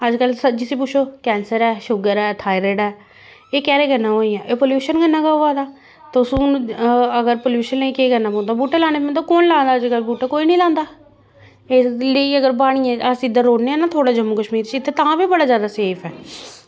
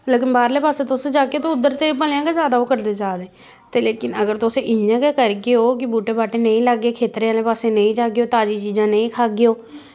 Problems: constant background noise